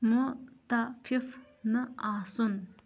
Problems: background sounds at intervals